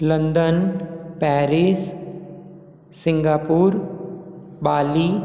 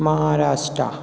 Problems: background sounds at intervals, echo